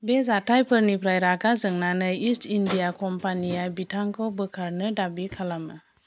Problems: constant background noise